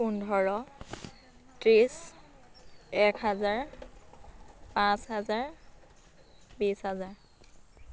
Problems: constant background noise